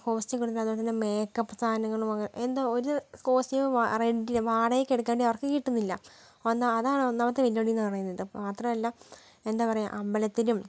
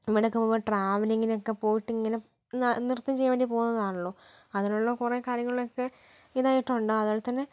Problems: low volume